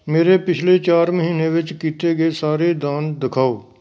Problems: background sounds at intervals